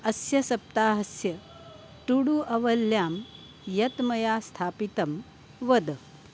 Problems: constant background noise